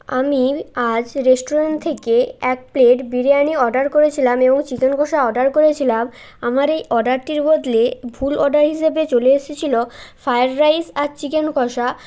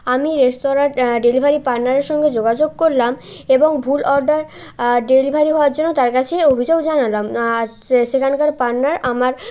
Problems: continuous background conversations